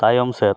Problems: background conversations at intervals